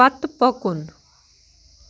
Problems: constant background noise